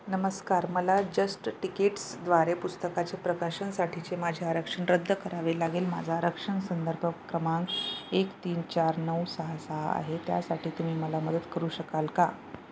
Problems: none marked